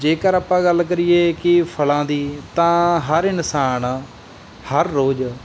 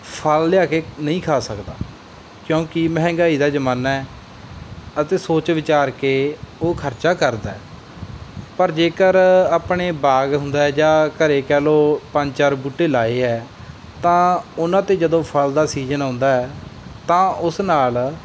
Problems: none marked